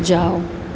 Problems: none marked